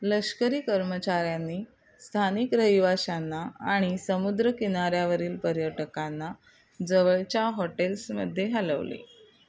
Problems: background sounds at intervals